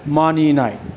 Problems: constant background noise